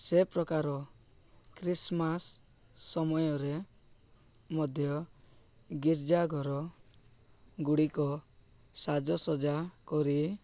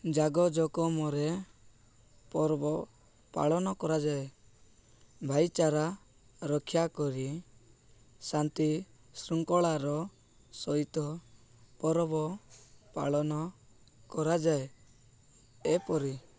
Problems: none marked